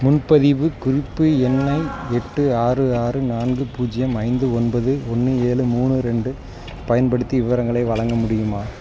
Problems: background sounds at intervals, background conversations at intervals